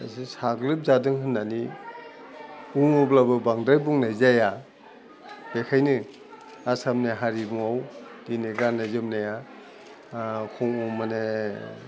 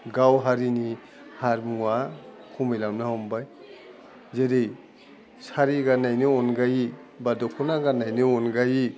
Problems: none marked